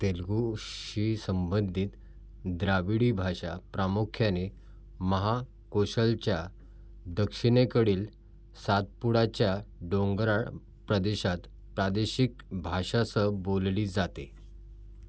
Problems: background sounds at intervals